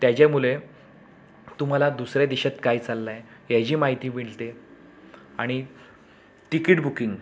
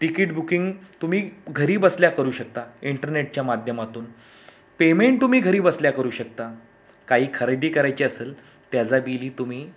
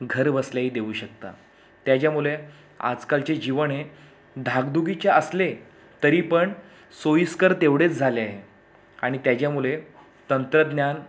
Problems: none marked